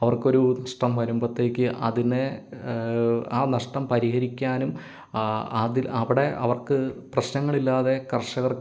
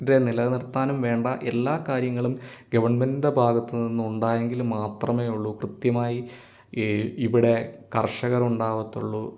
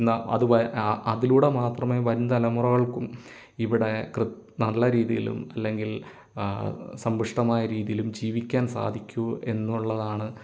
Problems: none marked